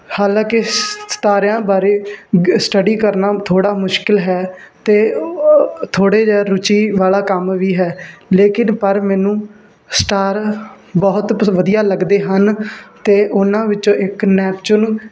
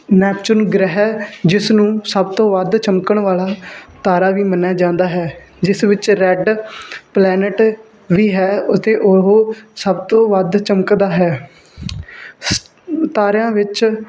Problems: constant background noise